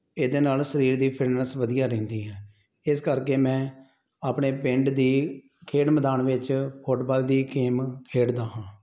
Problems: none marked